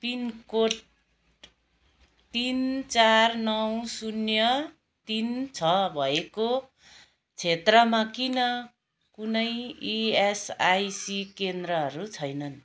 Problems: background sounds at intervals, background conversations at intervals